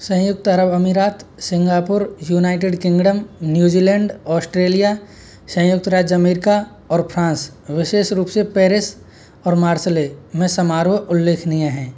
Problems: constant background noise